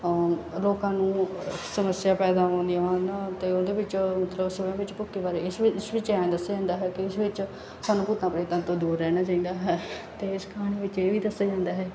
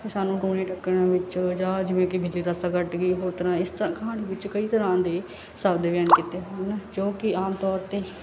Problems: background sounds at intervals